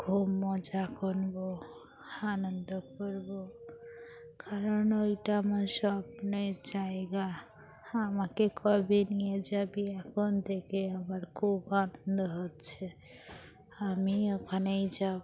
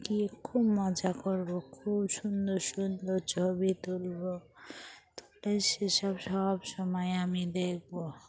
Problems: constant background noise, background conversations at intervals